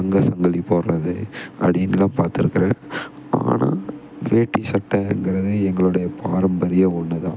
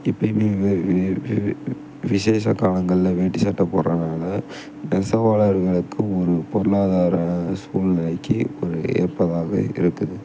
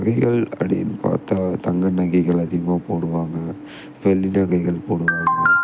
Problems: none marked